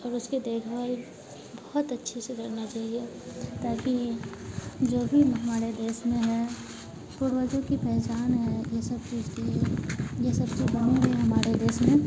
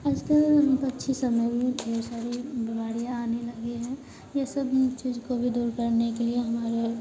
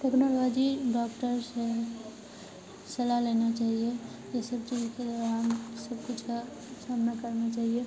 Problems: constant background noise